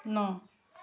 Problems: background sounds at intervals, background conversations at intervals